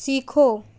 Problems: none marked